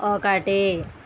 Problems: constant background noise